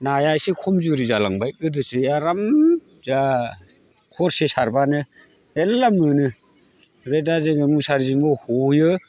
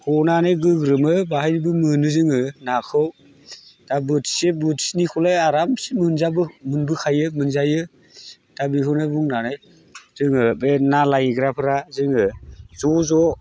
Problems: constant background noise